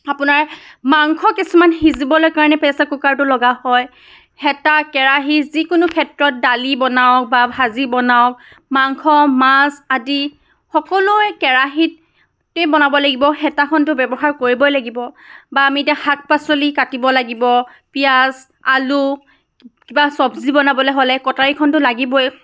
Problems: background sounds at intervals